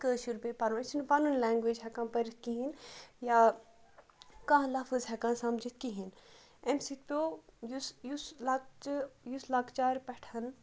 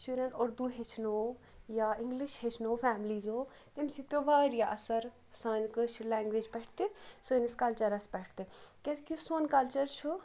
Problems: background sounds at intervals